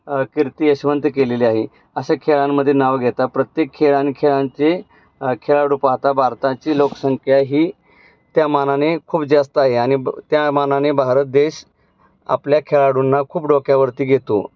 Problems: background sounds at intervals